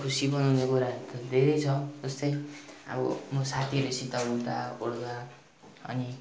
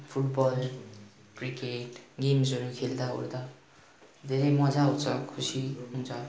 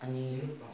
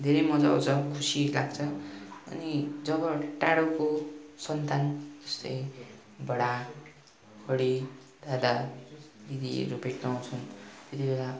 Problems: continuous background conversations